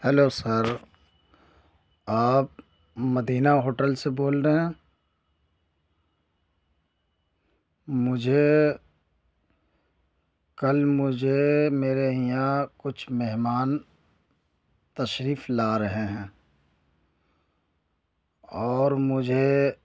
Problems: none marked